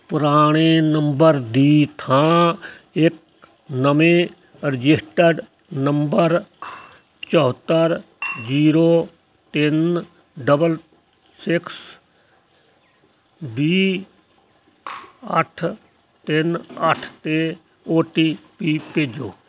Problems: constant background noise